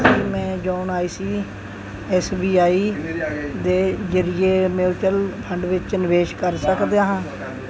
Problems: continuous background conversations